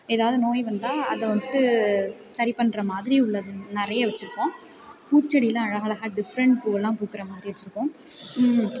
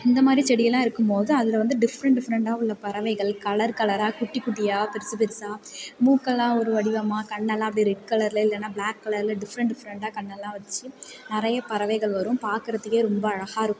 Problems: continuous background conversations